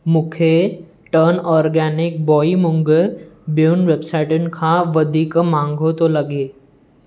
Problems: none marked